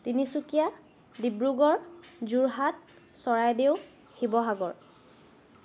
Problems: constant background noise